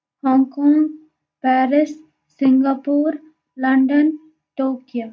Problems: constant background noise